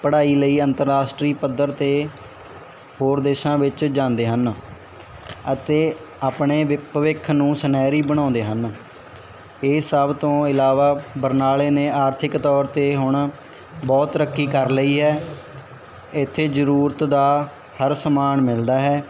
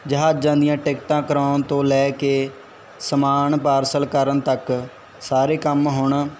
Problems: background conversations at intervals